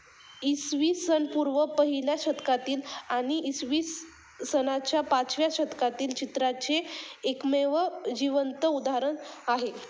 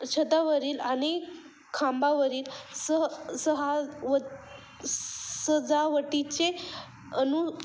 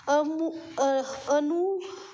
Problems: constant background noise, background conversations at intervals